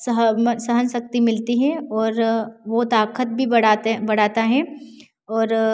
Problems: constant background noise